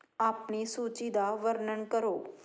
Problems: background sounds at intervals